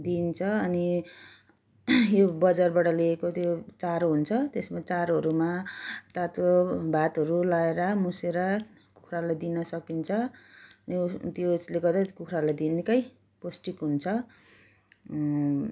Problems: background sounds at intervals